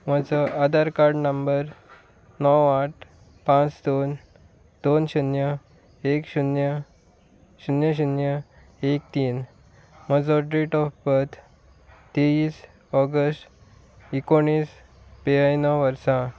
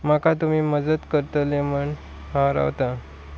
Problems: none marked